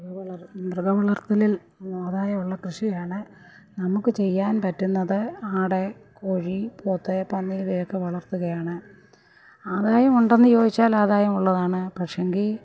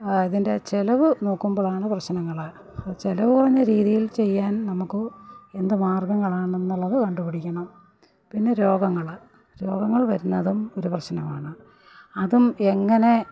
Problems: background sounds at intervals, background conversations at intervals, low volume